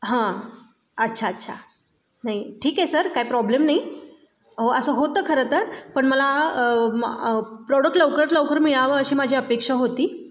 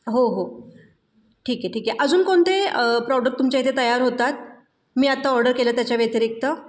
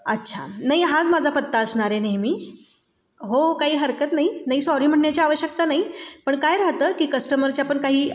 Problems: none marked